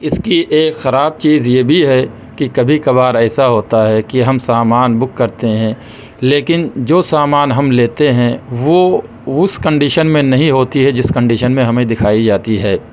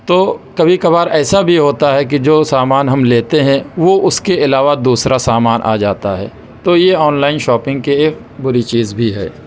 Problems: background sounds at intervals